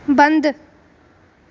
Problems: none marked